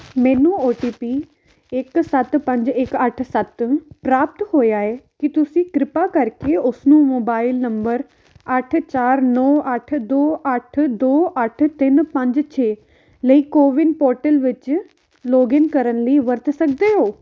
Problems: background sounds at intervals